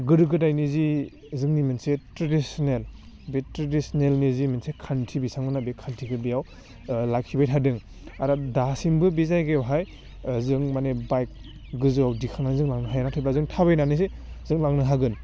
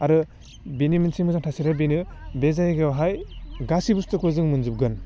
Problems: low volume